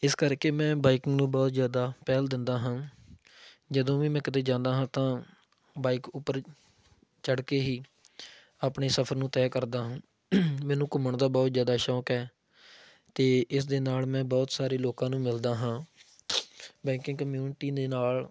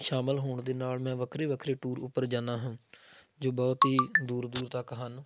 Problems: background sounds at intervals